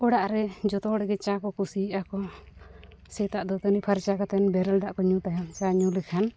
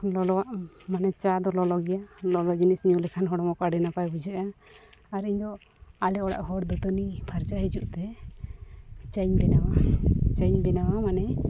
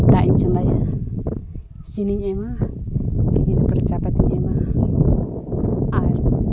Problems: background sounds at intervals